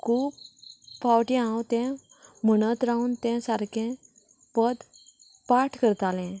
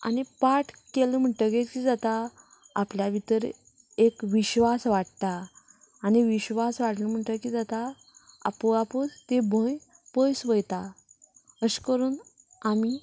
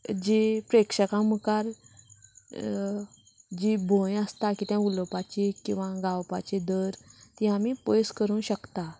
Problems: background conversations at intervals